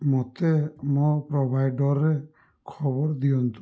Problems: none marked